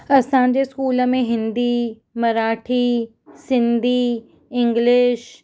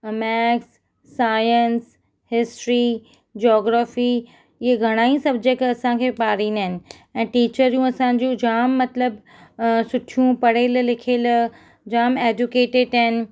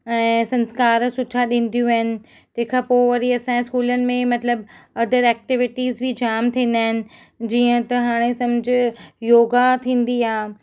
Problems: none marked